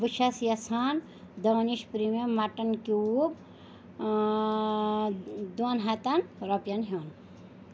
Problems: constant background noise